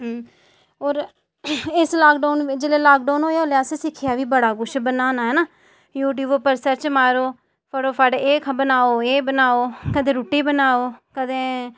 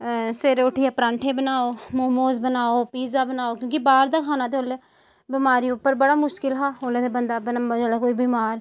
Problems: none marked